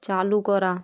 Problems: constant background noise